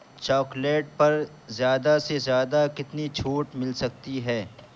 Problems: background sounds at intervals